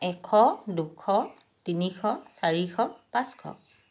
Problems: background sounds at intervals